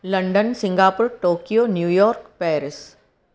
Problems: echo